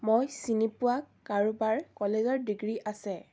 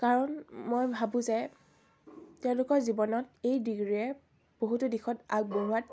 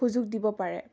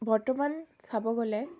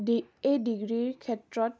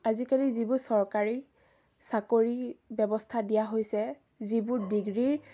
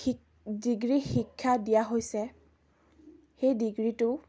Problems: background sounds at intervals